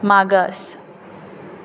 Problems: none marked